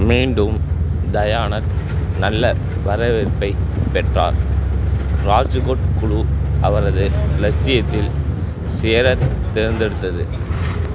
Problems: constant background noise